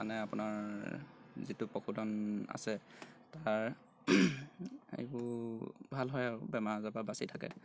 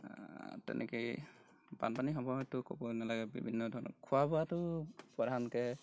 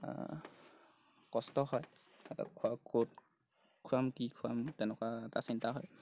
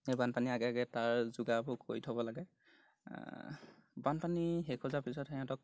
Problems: none marked